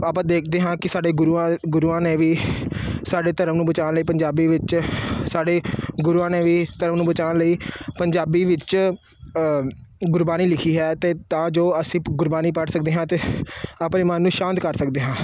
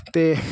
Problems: none marked